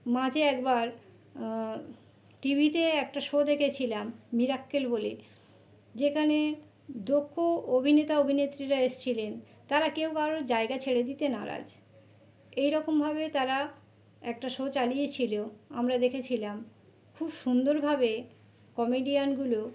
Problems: none marked